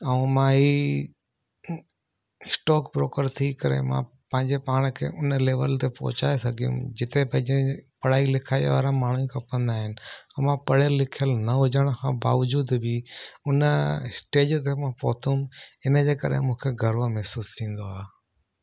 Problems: none marked